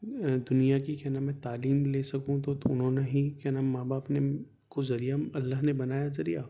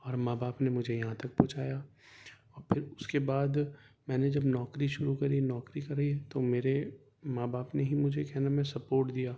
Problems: background sounds at intervals